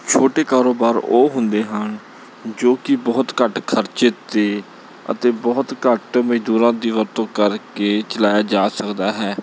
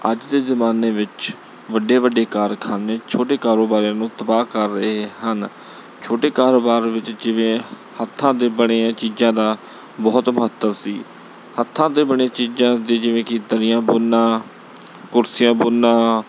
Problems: background sounds at intervals